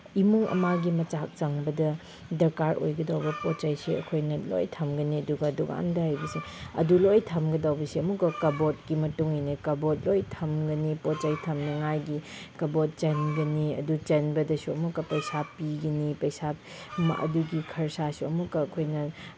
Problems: background sounds at intervals